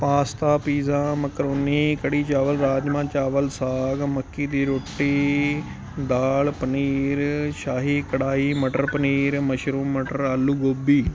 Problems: constant background noise